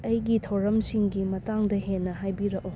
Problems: low volume